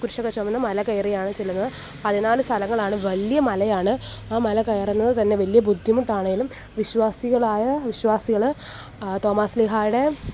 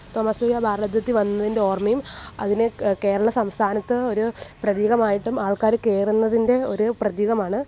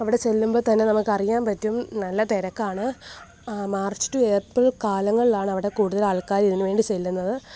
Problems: background sounds at intervals